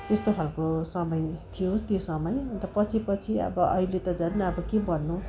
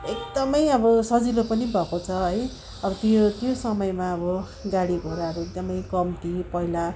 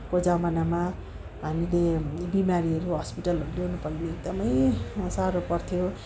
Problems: none marked